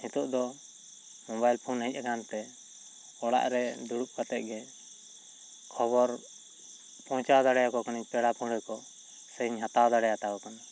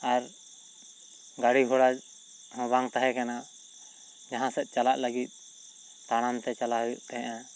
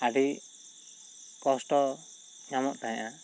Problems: constant background noise